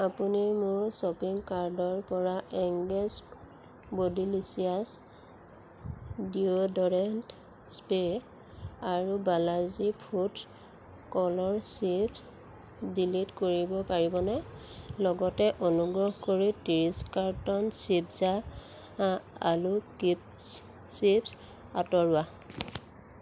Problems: none marked